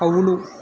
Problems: constant background noise